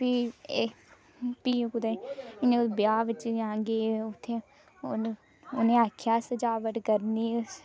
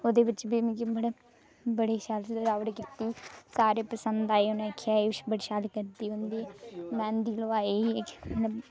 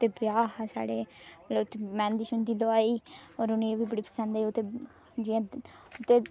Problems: echo